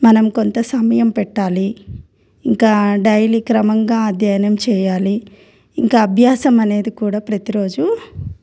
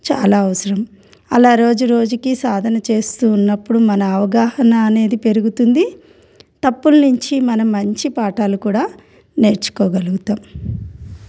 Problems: none marked